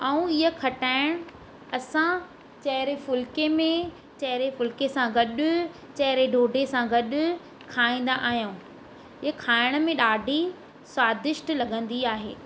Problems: constant background noise